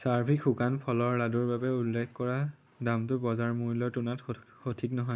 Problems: none marked